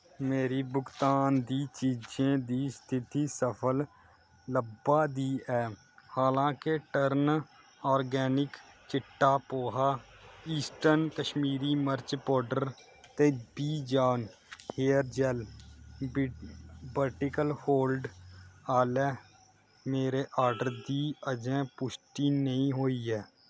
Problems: low volume